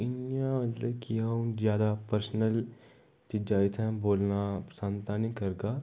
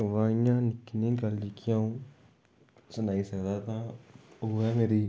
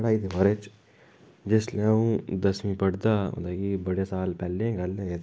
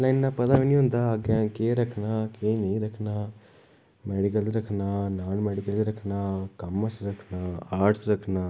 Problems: background sounds at intervals, echo